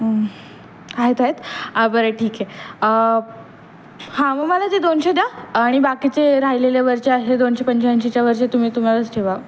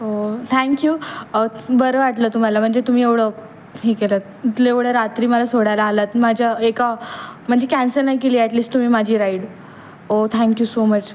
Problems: none marked